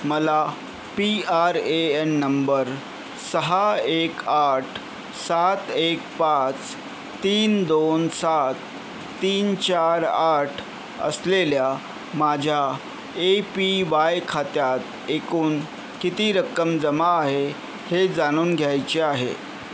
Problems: constant background noise, background conversations at intervals